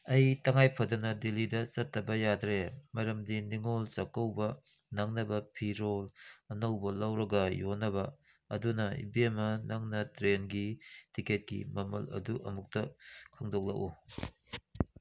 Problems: none marked